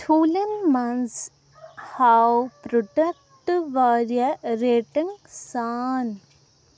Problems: none marked